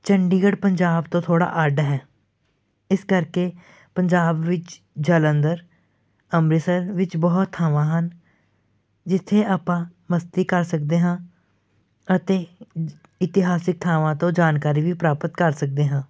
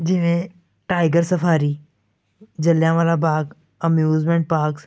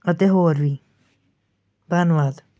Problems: none marked